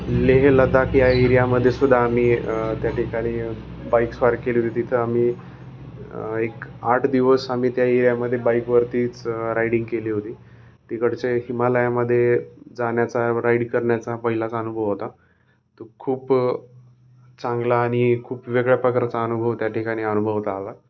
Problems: none marked